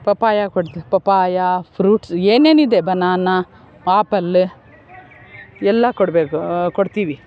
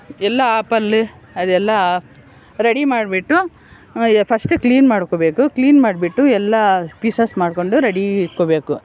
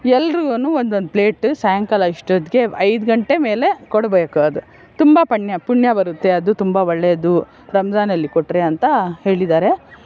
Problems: background sounds at intervals